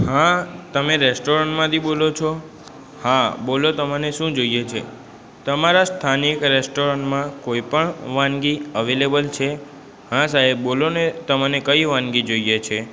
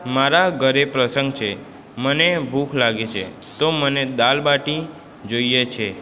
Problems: constant background noise, background conversations at intervals